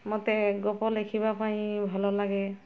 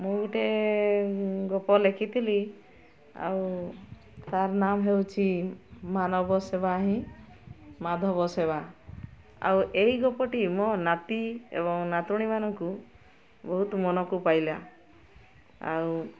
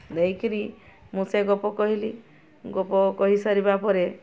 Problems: constant background noise, continuous background conversations